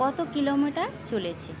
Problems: none marked